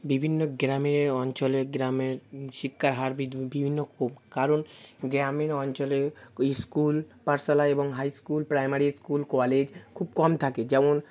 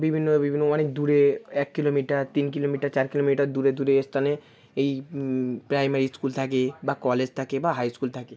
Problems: constant background noise, continuous background conversations